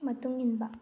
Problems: low volume